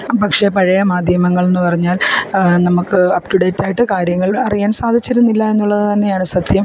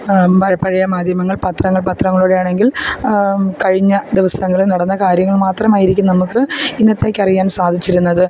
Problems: background sounds at intervals